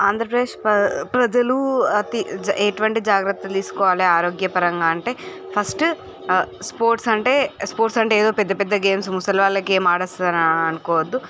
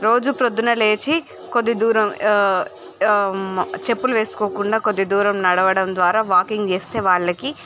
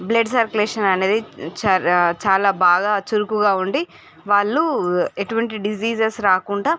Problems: background sounds at intervals, background conversations at intervals